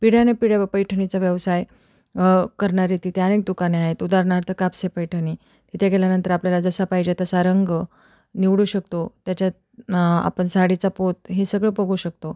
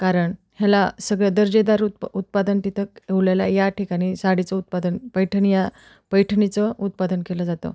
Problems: none marked